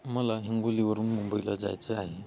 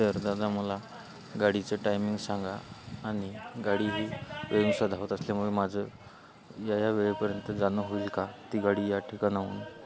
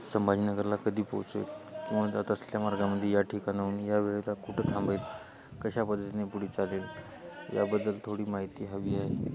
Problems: constant background noise